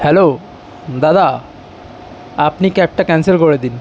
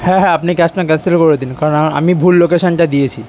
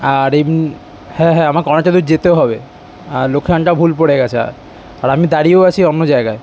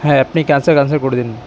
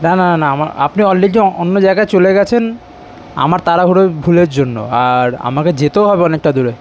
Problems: constant background noise